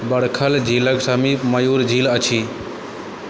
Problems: constant background noise